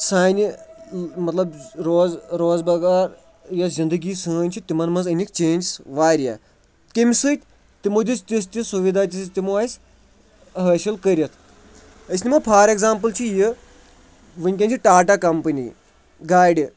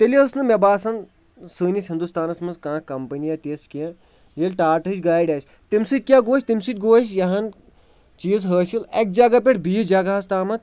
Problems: continuous background conversations